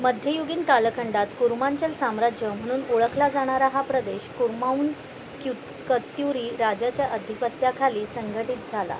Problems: none marked